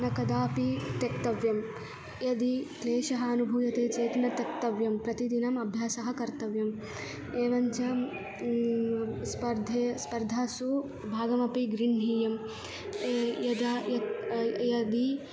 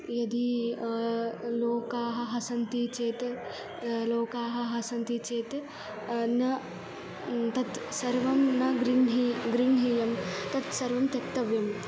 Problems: background sounds at intervals